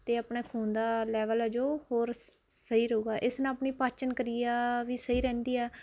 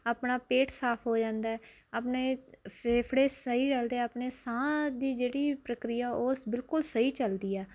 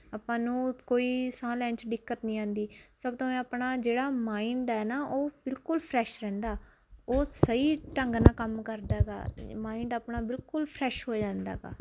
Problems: constant background noise